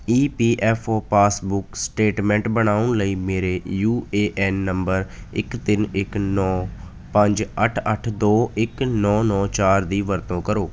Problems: none marked